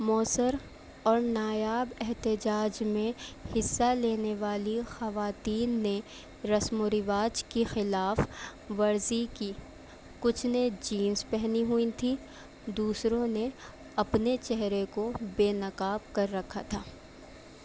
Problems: none marked